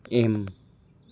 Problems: background sounds at intervals